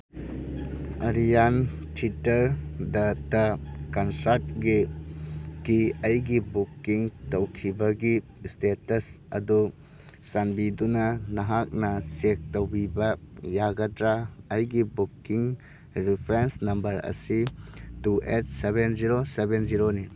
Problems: background sounds at intervals